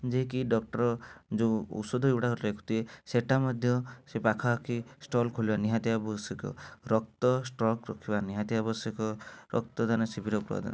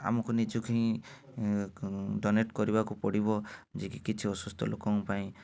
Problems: none marked